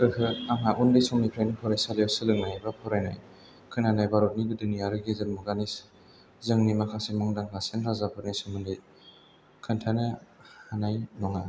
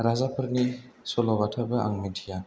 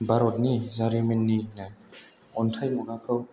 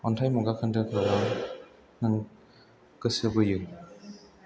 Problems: low volume